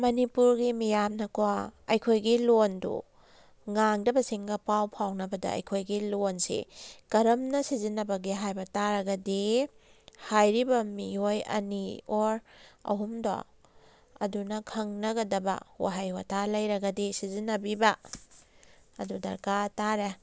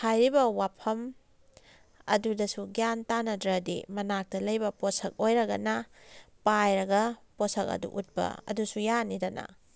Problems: background sounds at intervals